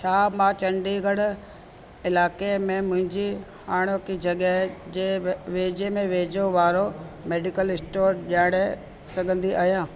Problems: constant background noise, echo